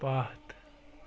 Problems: background sounds at intervals